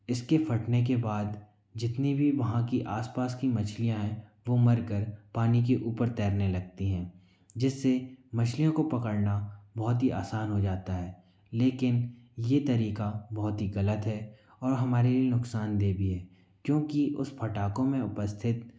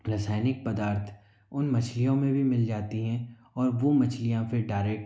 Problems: echo